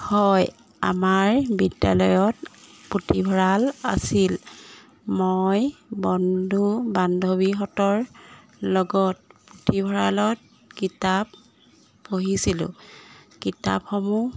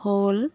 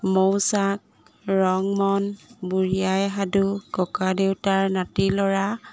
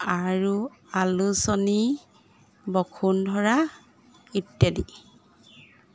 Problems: constant background noise